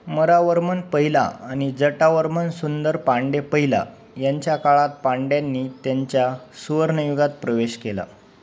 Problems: constant background noise